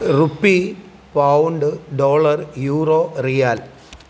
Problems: background sounds at intervals